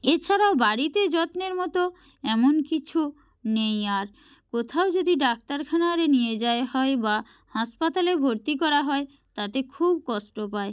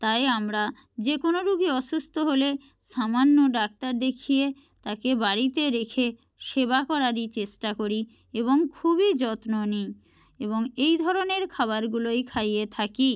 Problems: none marked